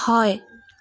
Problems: constant background noise